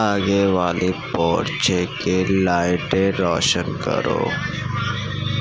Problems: constant background noise, low volume